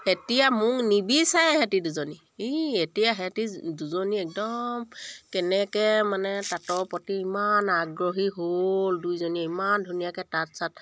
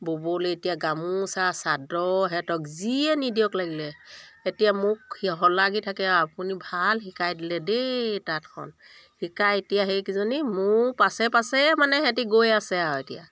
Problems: background sounds at intervals